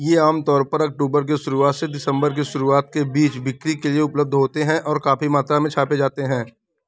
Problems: background sounds at intervals